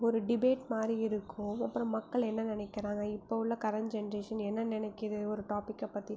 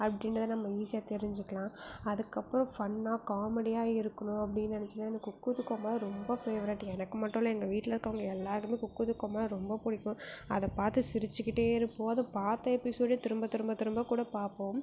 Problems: low volume